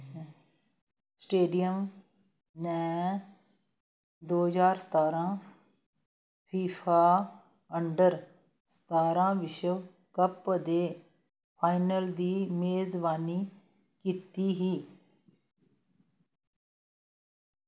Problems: none marked